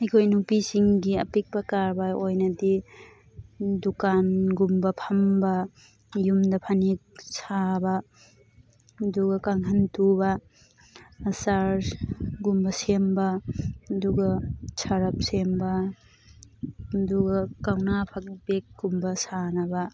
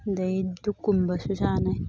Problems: background sounds at intervals, background conversations at intervals